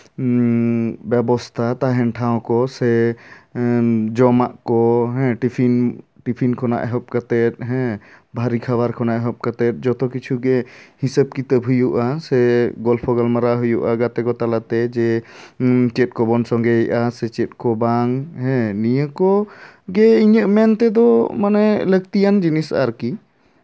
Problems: none marked